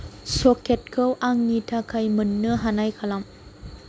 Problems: none marked